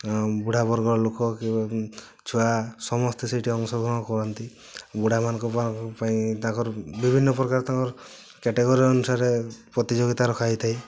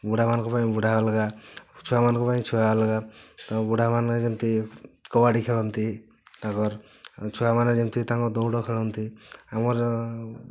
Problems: none marked